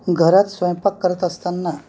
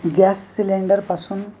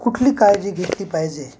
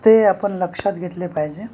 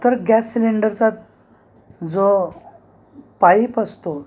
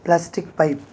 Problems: constant background noise, background conversations at intervals